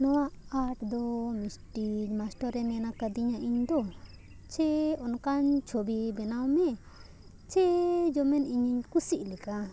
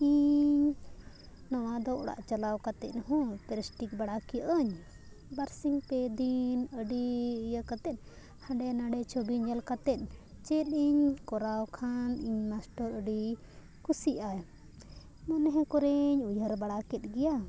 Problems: background sounds at intervals